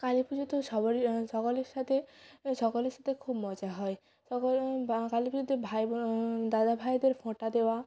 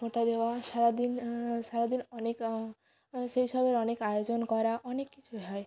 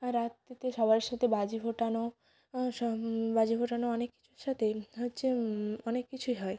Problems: continuous background conversations